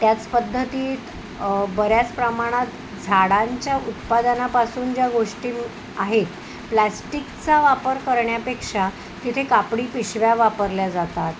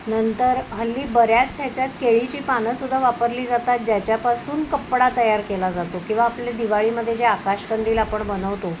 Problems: none marked